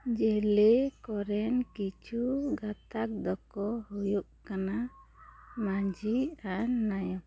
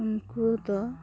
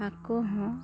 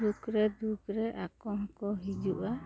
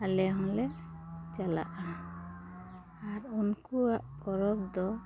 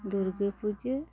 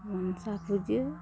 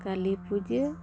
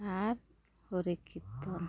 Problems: background sounds at intervals